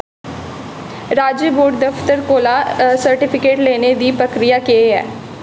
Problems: constant background noise, echo